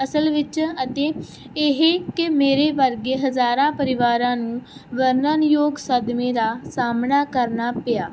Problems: none marked